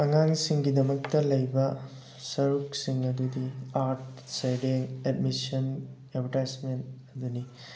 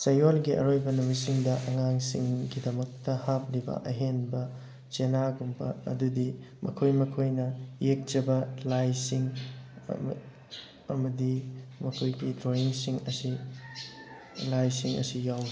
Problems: constant background noise